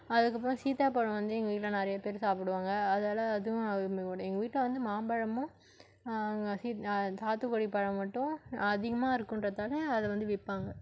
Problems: none marked